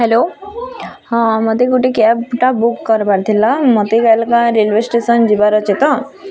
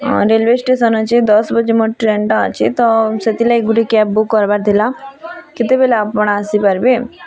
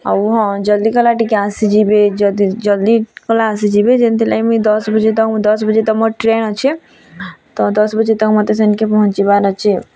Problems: constant background noise, continuous background conversations